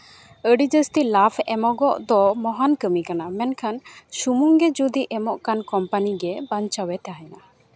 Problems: constant background noise